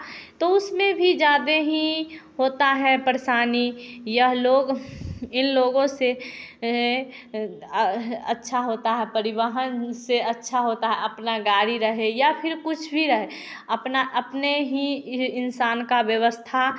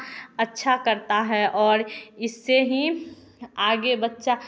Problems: none marked